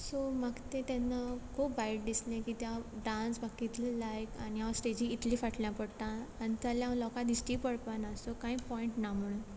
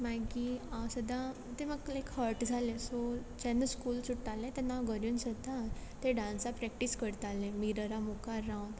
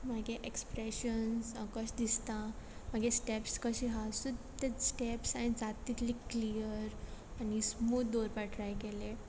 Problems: background sounds at intervals